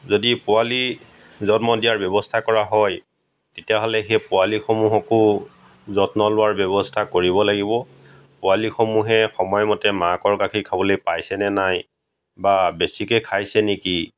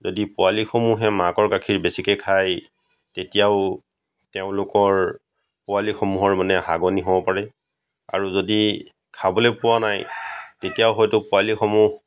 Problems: background sounds at intervals, background conversations at intervals